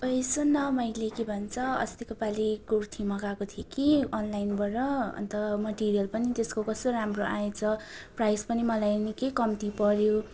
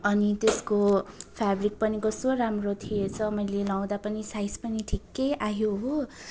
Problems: continuous background conversations